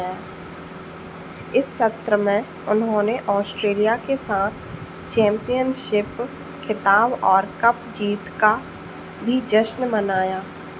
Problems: constant background noise